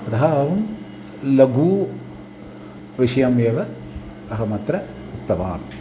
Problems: background sounds at intervals